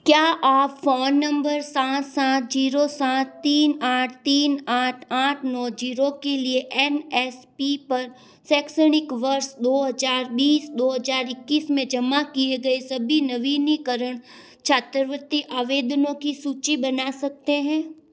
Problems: none marked